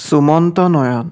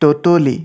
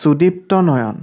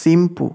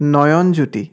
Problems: constant background noise